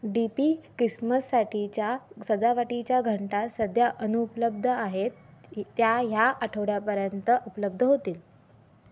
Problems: constant background noise, background conversations at intervals